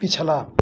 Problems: none marked